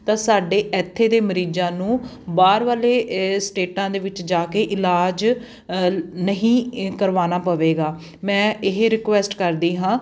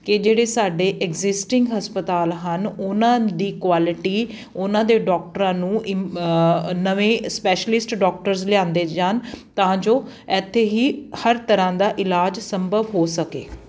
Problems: constant background noise